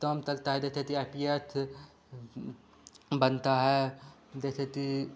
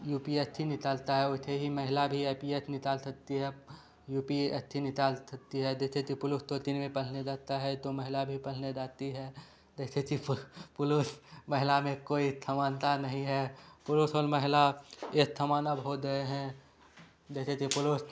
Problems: none marked